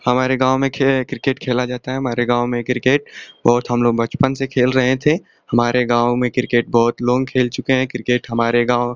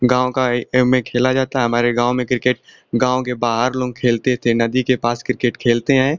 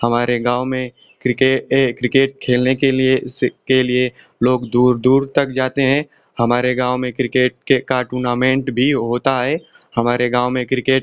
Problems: constant background noise